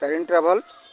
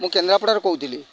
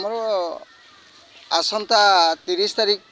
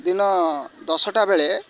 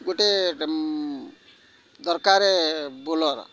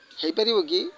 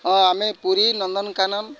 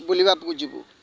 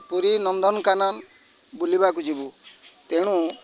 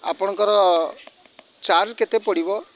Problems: constant background noise, continuous background conversations